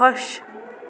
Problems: none marked